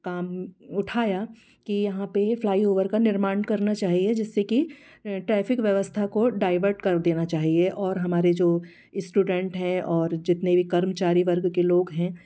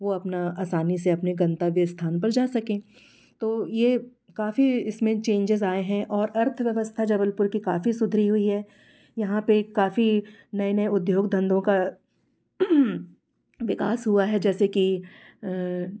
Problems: constant background noise